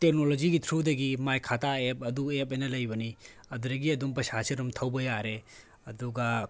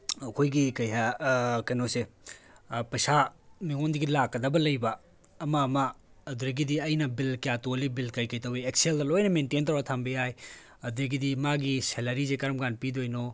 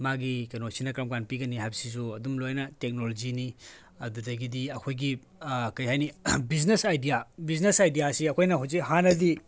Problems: background conversations at intervals